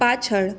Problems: constant background noise